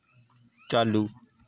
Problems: background sounds at intervals